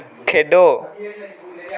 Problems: background sounds at intervals